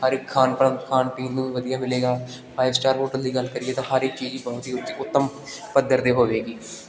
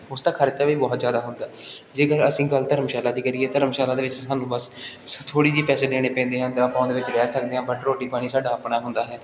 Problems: none marked